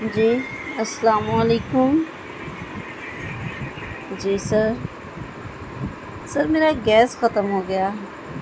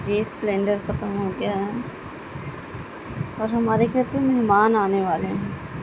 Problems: constant background noise